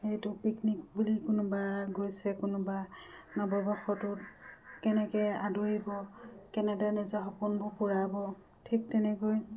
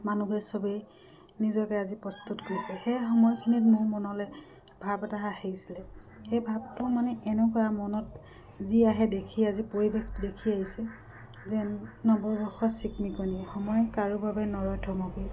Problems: background sounds at intervals